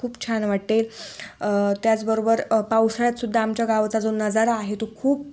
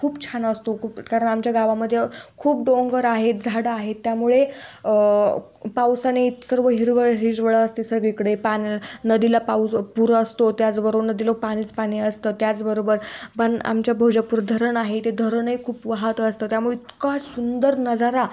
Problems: constant background noise